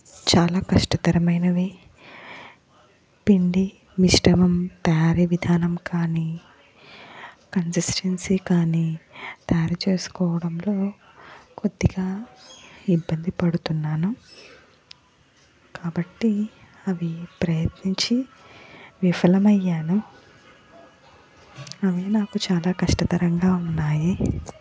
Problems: background sounds at intervals